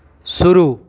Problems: constant background noise